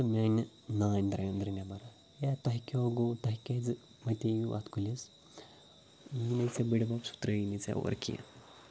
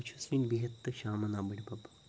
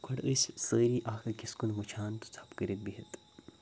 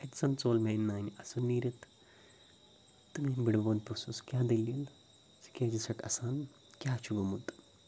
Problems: background sounds at intervals